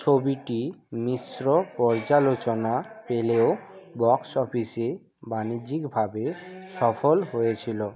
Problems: constant background noise